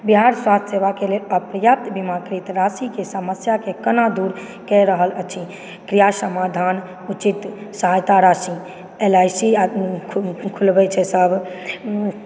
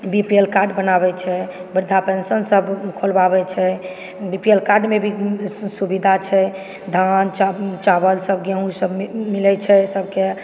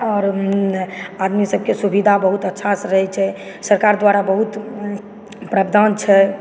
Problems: background sounds at intervals, background conversations at intervals